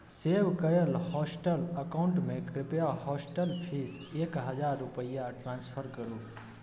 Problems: none marked